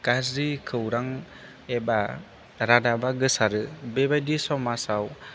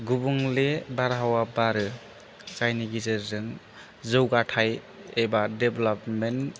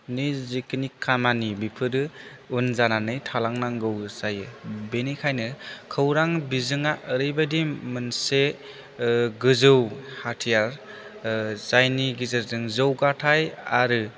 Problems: none marked